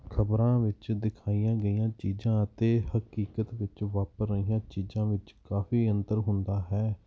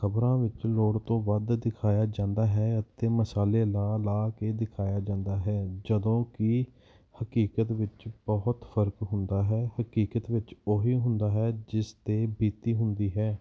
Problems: none marked